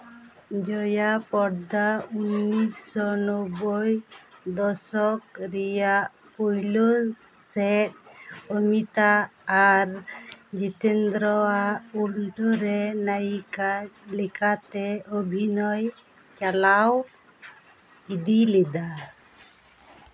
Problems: background sounds at intervals